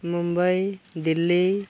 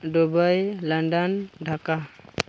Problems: none marked